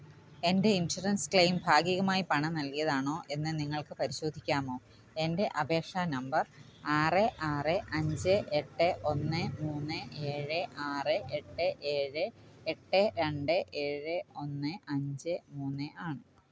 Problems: background sounds at intervals